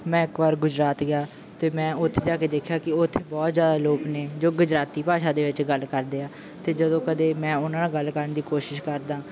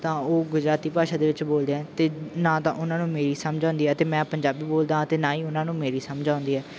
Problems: none marked